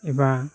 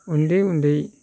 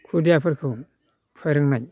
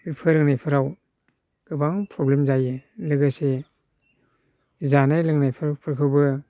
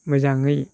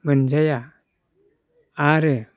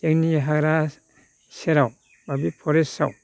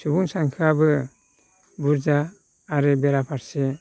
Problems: none marked